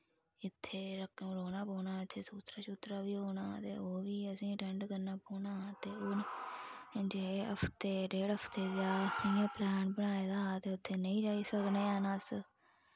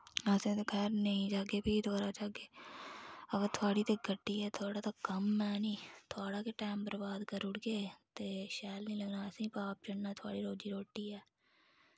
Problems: low volume